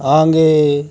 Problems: constant background noise